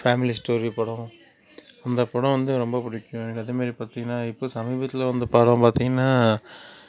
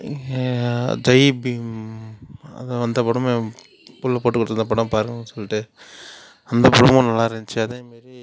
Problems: background sounds at intervals, background conversations at intervals